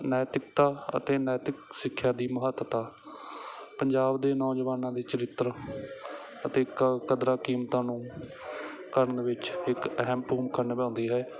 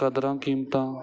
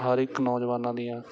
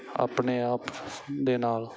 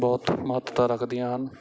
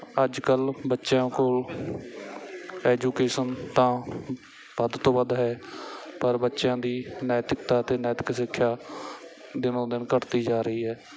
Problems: background sounds at intervals, background conversations at intervals